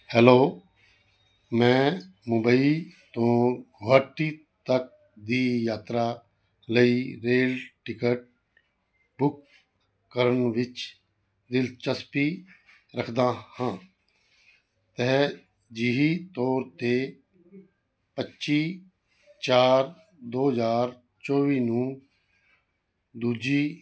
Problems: none marked